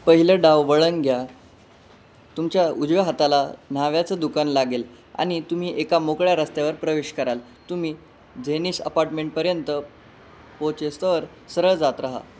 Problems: none marked